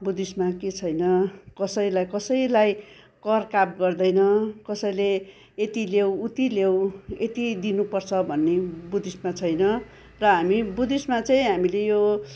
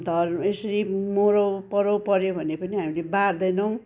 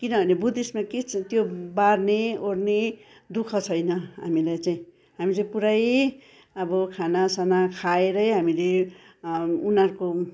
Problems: background sounds at intervals